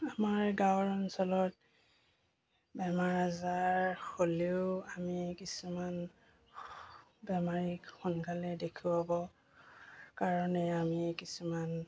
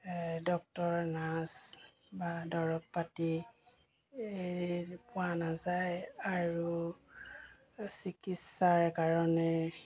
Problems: constant background noise